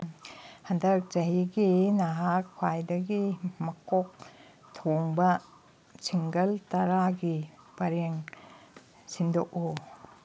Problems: none marked